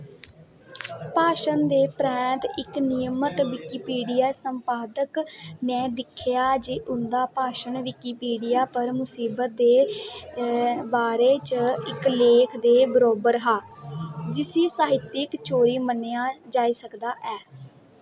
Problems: none marked